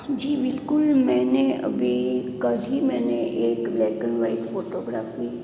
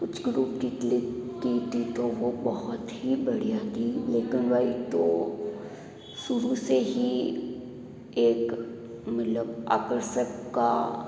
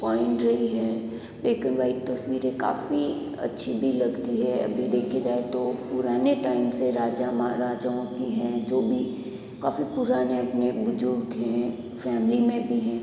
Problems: background sounds at intervals